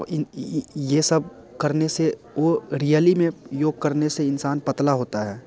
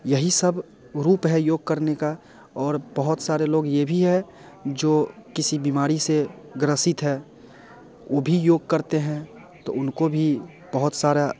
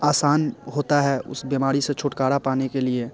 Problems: none marked